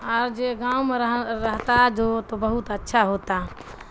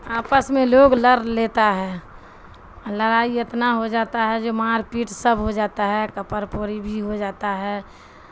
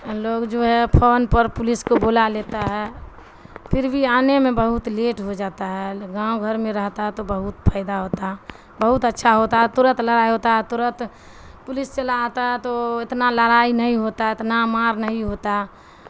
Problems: constant background noise